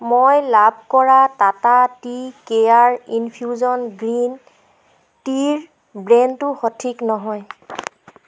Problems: constant background noise